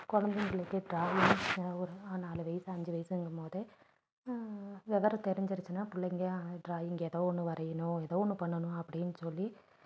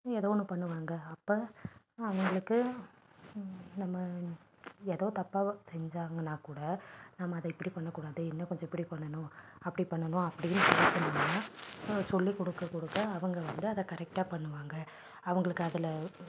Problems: background sounds at intervals, low volume